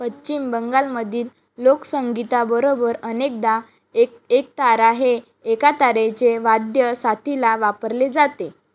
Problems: background sounds at intervals